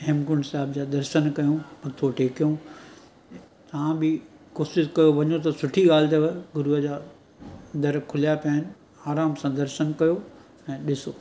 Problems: constant background noise